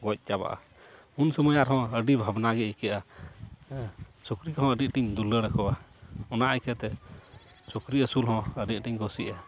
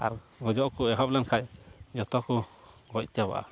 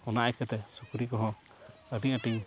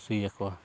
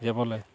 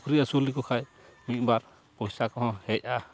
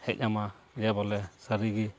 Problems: background sounds at intervals, background conversations at intervals